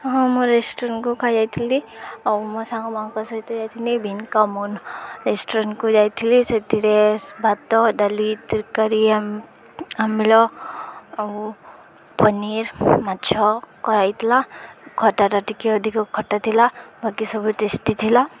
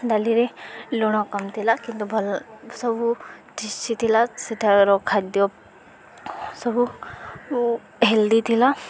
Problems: none marked